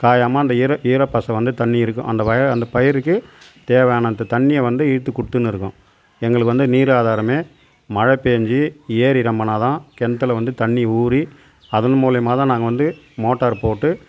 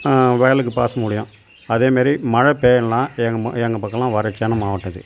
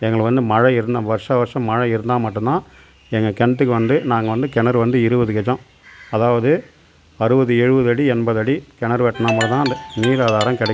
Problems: background sounds at intervals